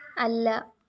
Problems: background sounds at intervals